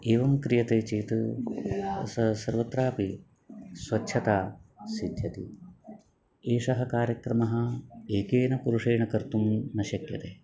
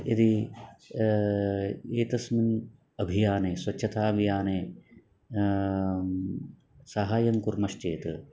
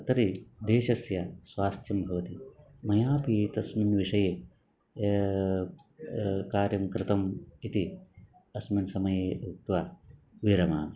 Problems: none marked